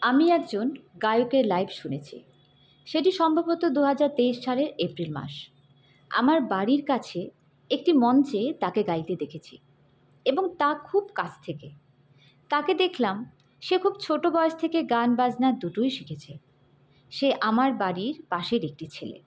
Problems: none marked